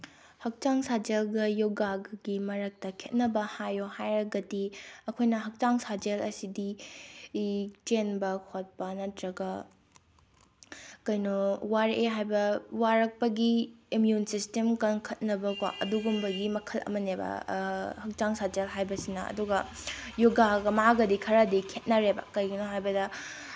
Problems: background sounds at intervals